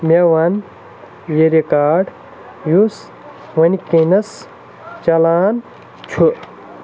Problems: constant background noise